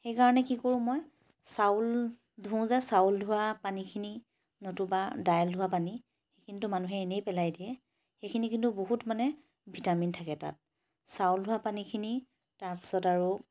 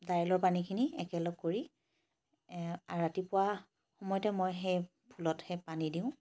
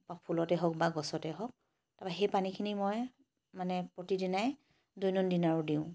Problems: none marked